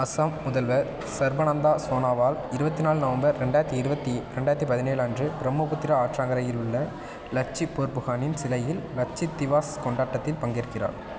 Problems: constant background noise